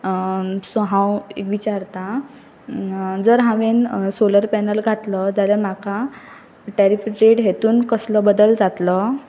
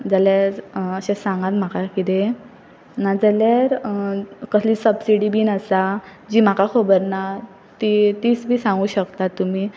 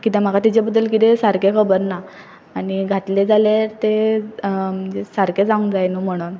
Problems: background sounds at intervals